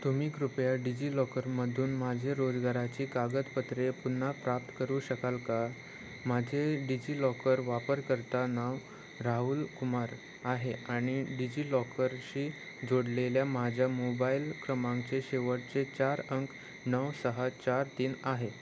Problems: constant background noise